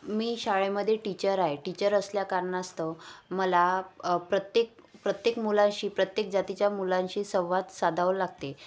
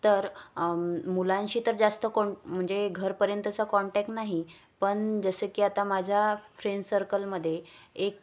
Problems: none marked